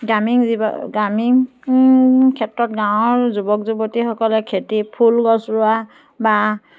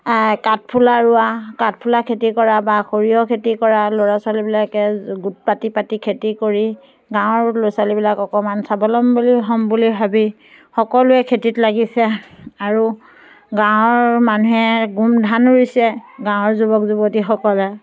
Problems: background sounds at intervals